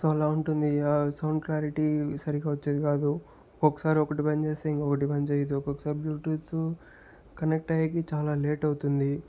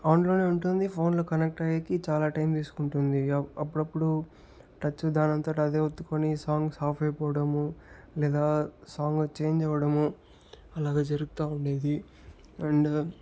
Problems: none marked